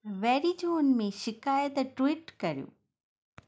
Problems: none marked